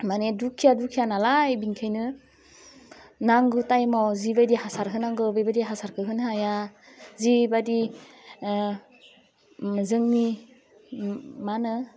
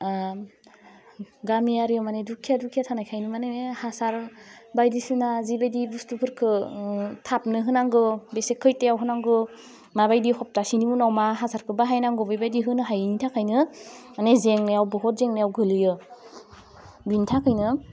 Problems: constant background noise